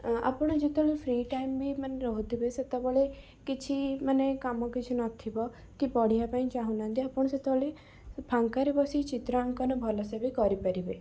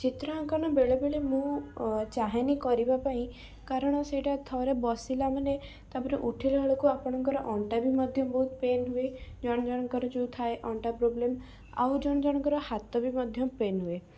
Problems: background sounds at intervals